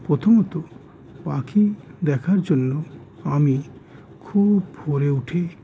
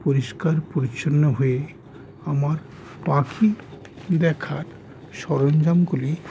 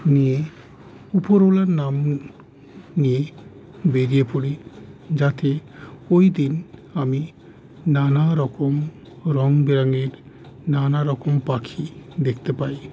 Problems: constant background noise